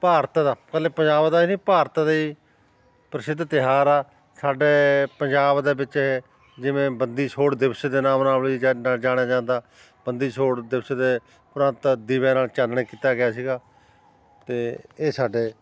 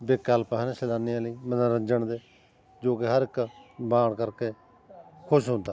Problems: constant background noise, continuous background conversations